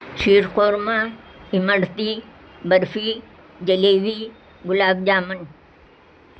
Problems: constant background noise